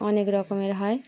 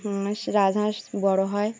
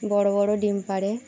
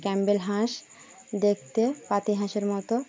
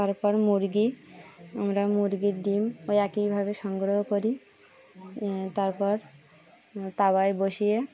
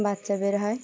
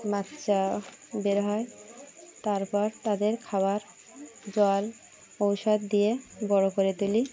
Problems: none marked